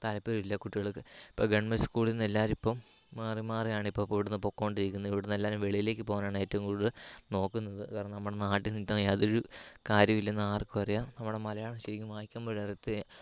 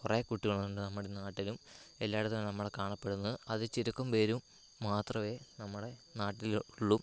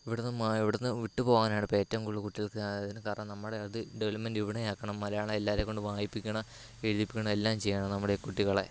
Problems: low volume